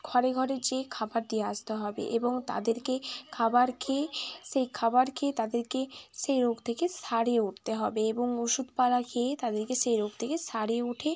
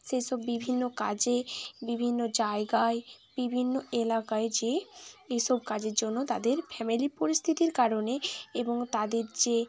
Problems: continuous background conversations